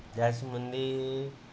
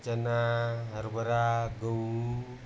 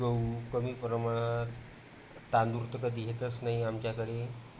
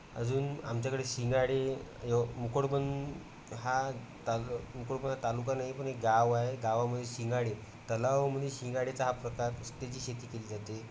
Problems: none marked